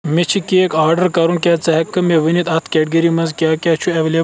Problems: constant background noise